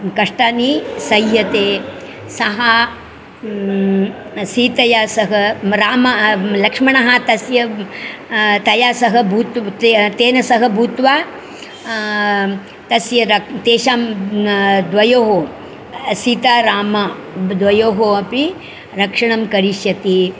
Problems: constant background noise, continuous background conversations